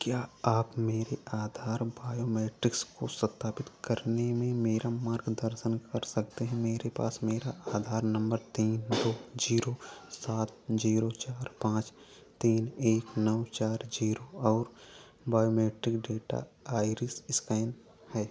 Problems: low volume